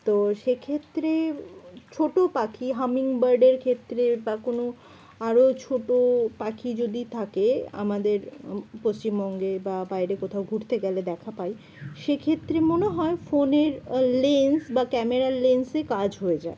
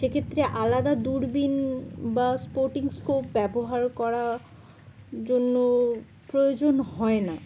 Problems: none marked